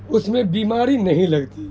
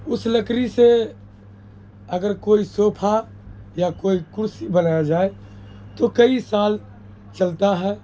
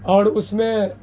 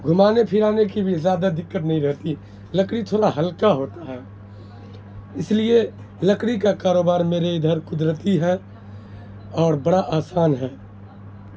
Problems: constant background noise